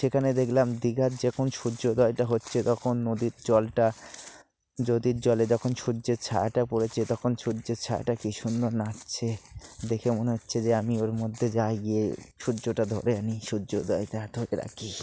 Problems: constant background noise